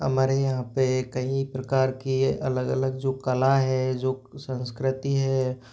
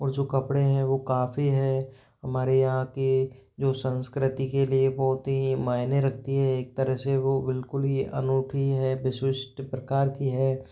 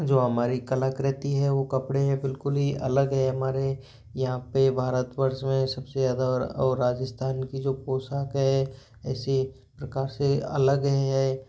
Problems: background sounds at intervals